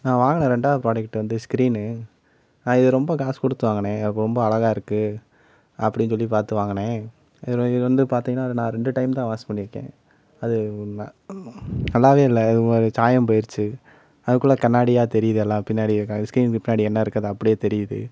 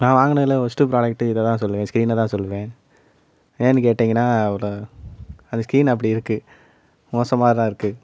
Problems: background sounds at intervals